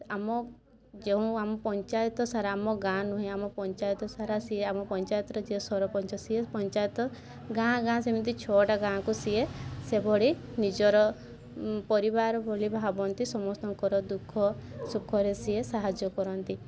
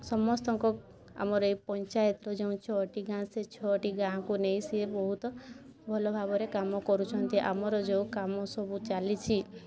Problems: constant background noise